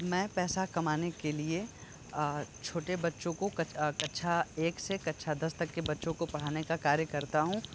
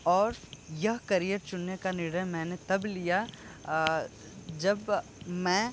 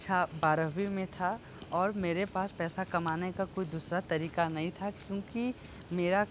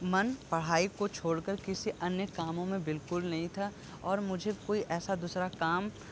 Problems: constant background noise